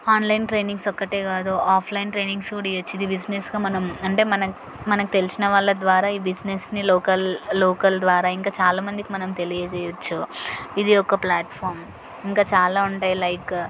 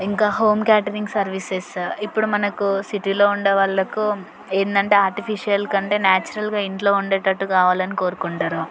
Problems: none marked